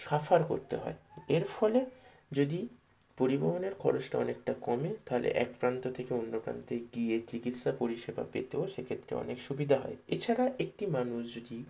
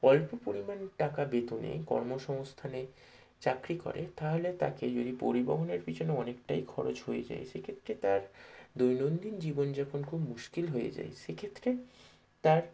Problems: low volume